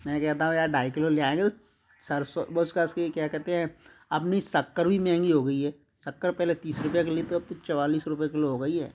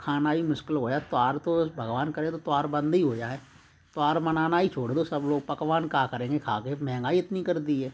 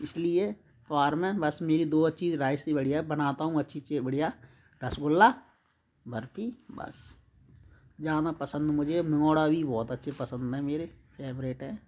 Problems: constant background noise